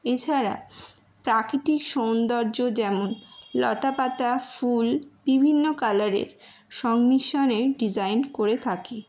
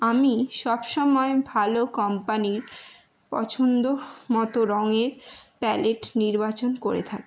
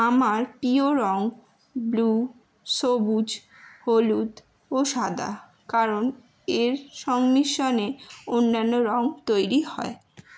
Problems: constant background noise